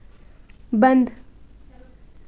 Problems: none marked